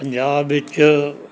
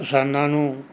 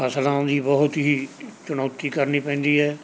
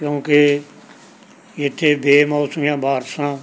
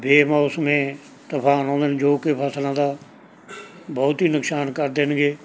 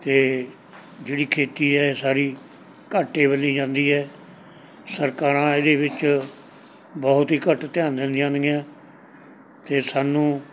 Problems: background sounds at intervals, background conversations at intervals